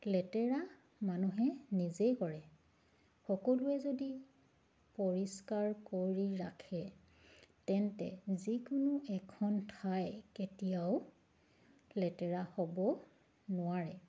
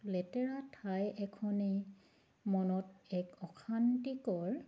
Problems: background sounds at intervals